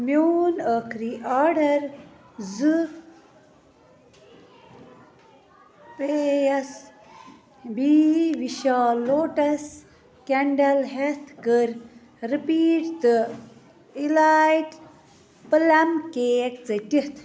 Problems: background sounds at intervals, continuous background conversations